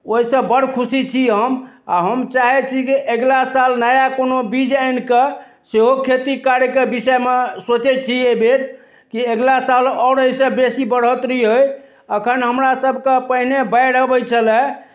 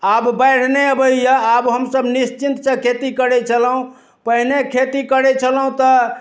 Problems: none marked